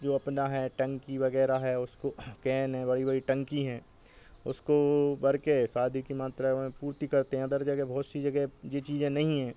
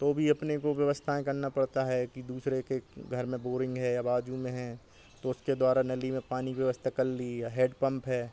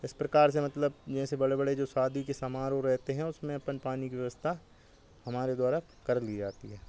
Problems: constant background noise